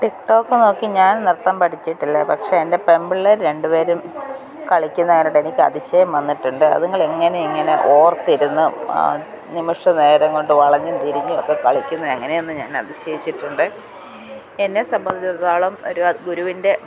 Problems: none marked